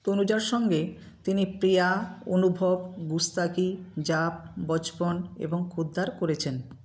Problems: constant background noise